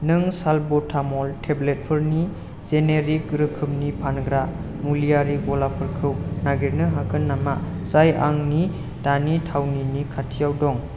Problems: constant background noise